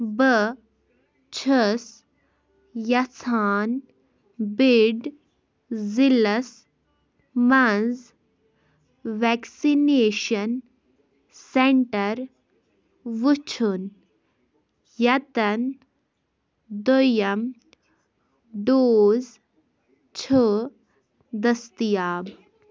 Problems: background sounds at intervals